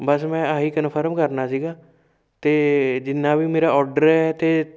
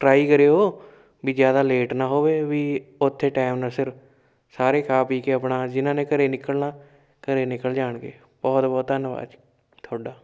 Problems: background sounds at intervals